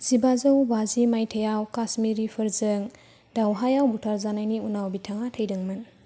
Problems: low volume